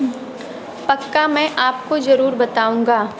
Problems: background sounds at intervals